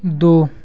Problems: none marked